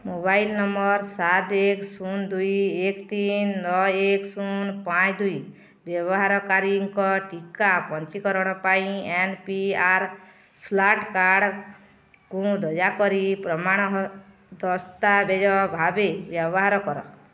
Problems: background sounds at intervals